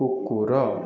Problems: none marked